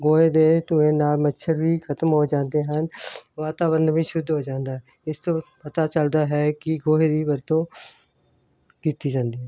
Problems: none marked